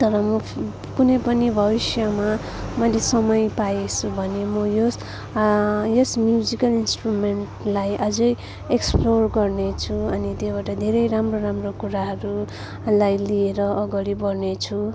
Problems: constant background noise, continuous background conversations